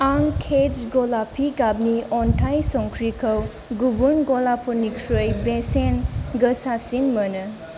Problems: background sounds at intervals